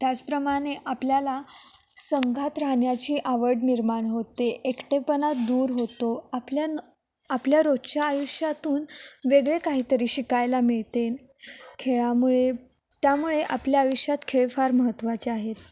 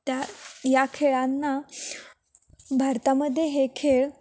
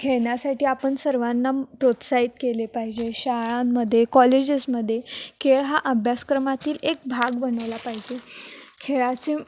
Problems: none marked